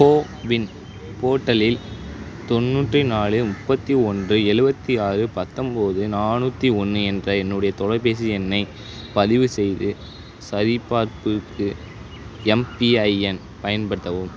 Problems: none marked